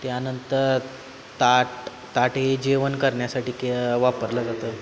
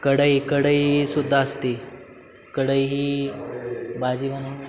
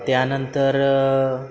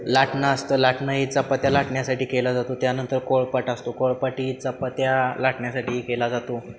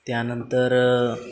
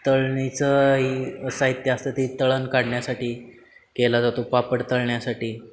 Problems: constant background noise, background conversations at intervals